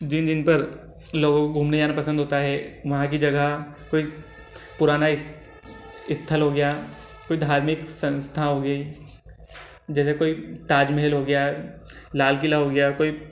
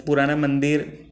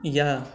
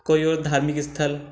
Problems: none marked